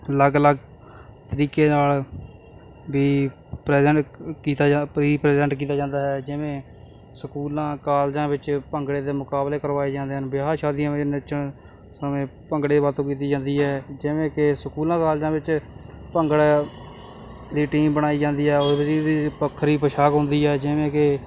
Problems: constant background noise